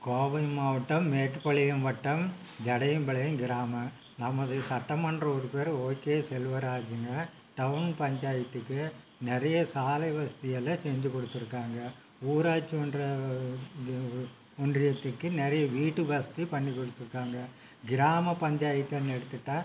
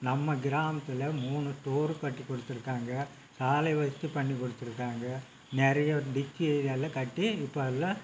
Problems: constant background noise